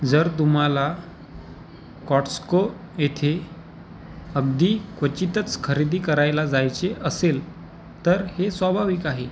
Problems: constant background noise, background conversations at intervals